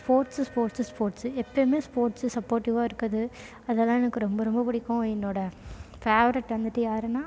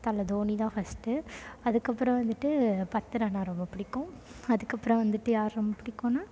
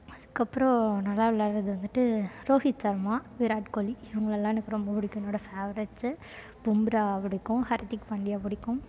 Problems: background sounds at intervals, low volume